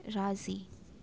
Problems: constant background noise